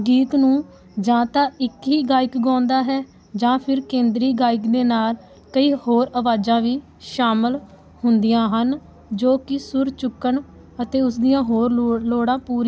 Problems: background sounds at intervals